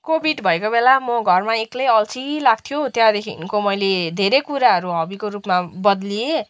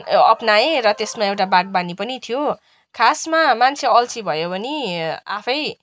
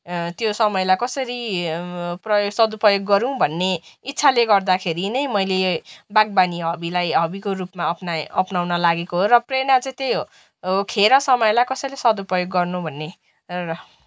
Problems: background sounds at intervals